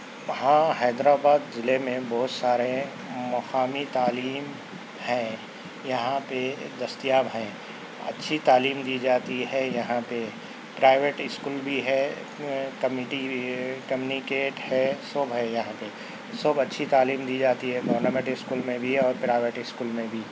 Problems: constant background noise